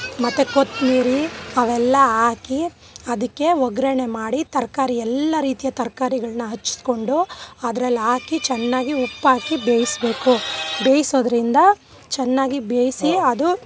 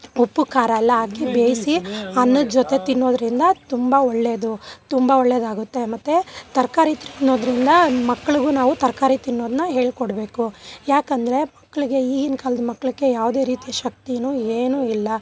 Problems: background sounds at intervals